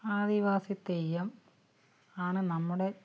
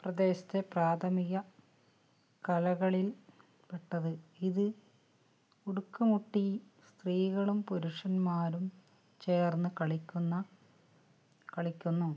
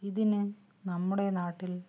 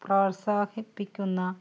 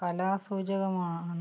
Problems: low volume